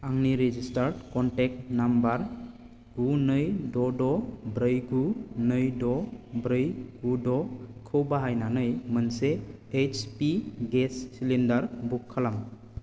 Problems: constant background noise